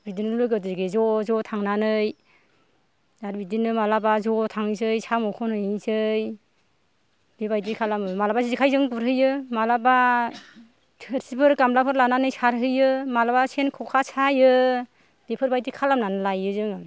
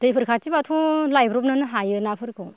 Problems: none marked